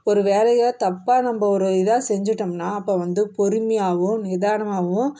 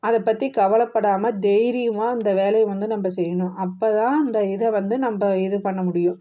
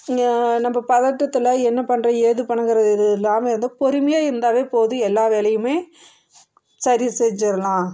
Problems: none marked